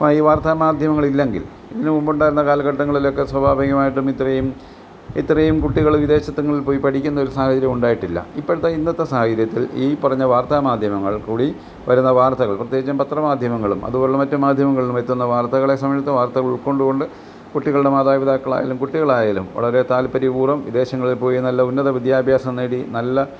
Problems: background sounds at intervals